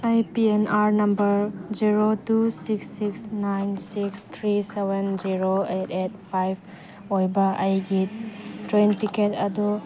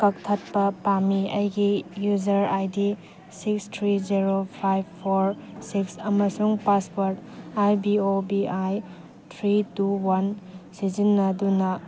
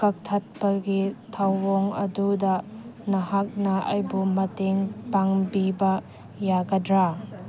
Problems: constant background noise